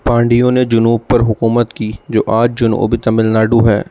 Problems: background sounds at intervals